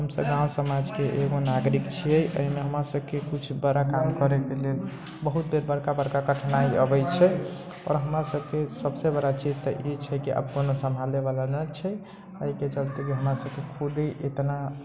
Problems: background sounds at intervals